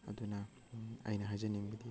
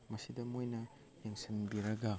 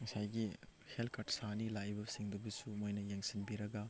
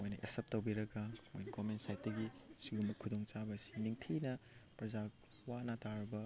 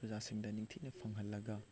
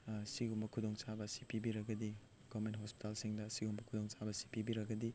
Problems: none marked